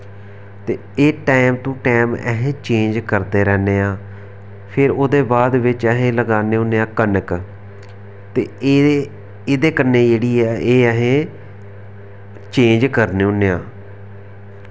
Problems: none marked